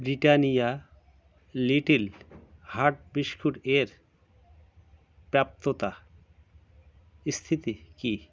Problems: background sounds at intervals